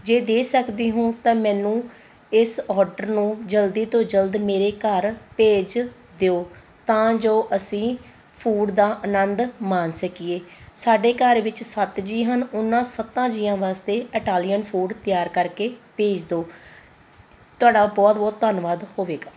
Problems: constant background noise